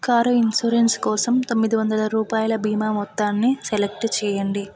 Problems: background sounds at intervals